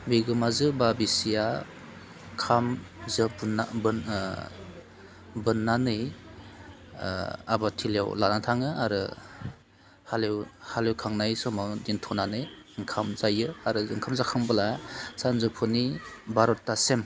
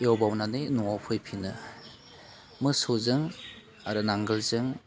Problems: constant background noise